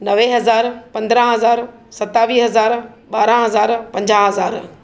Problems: background sounds at intervals